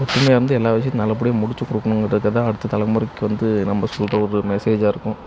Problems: background sounds at intervals